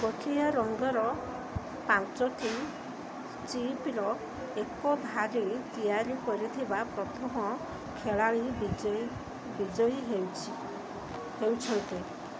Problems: constant background noise